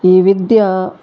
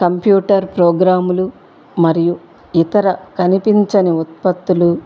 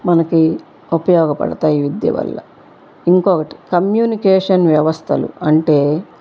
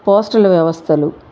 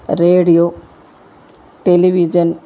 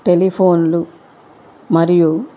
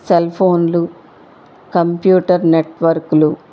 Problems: constant background noise